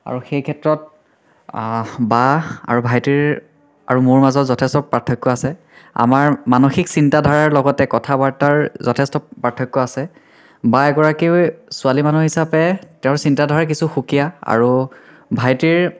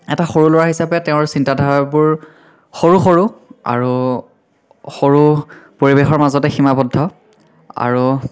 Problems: background sounds at intervals, continuous background conversations, echo